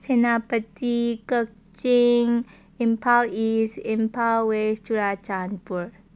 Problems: none marked